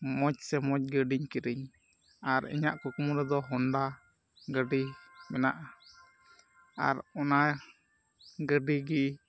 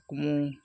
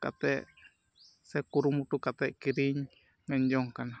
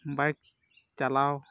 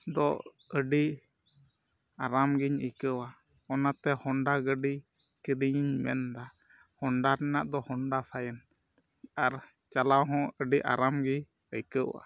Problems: background sounds at intervals